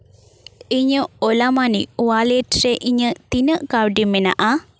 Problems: background sounds at intervals